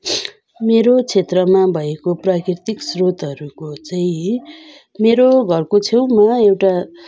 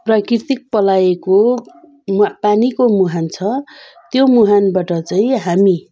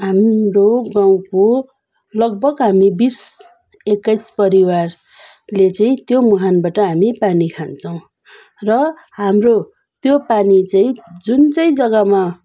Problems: none marked